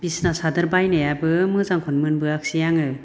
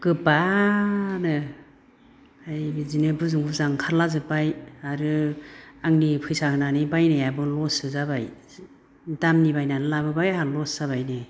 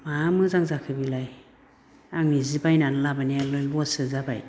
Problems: none marked